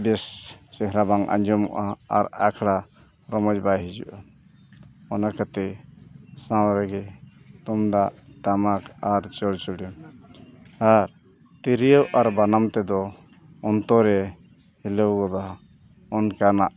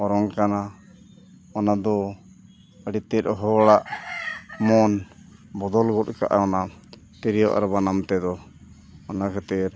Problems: none marked